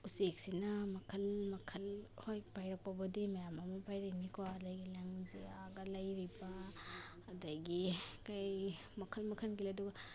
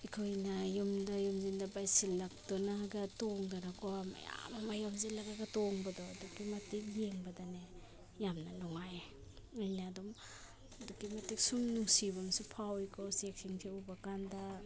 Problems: background sounds at intervals